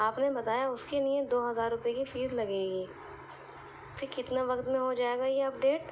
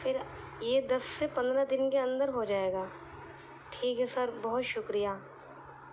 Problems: constant background noise